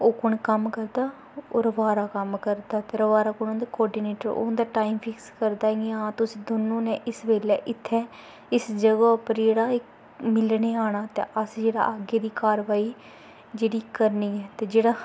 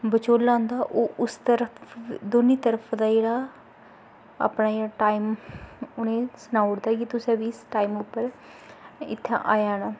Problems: constant background noise